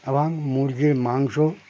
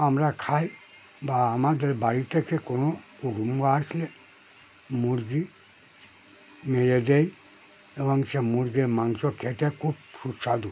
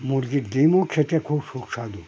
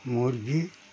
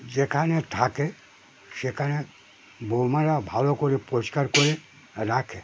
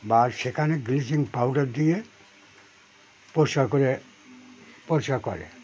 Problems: none marked